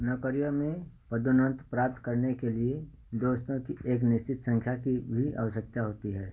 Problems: constant background noise, echo